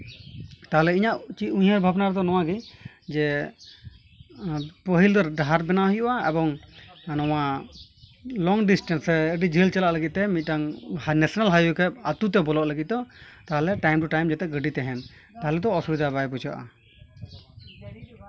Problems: none marked